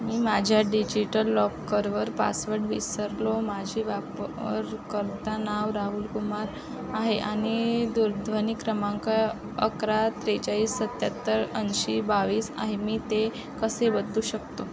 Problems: constant background noise, background conversations at intervals